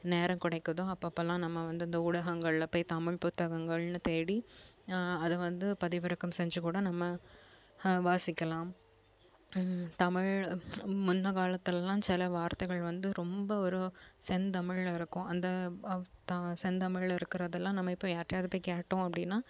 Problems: none marked